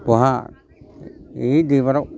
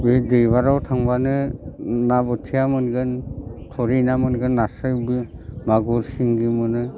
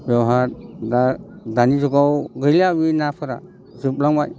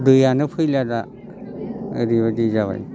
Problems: constant background noise